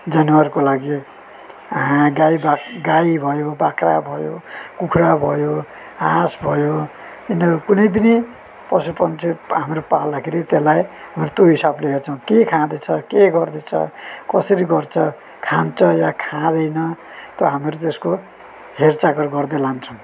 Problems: none marked